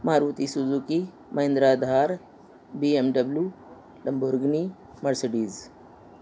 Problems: constant background noise